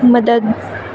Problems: constant background noise